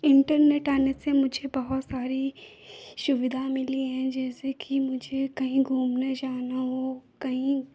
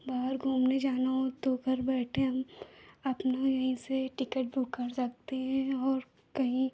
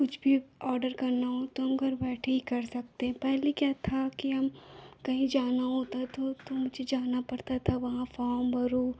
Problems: constant background noise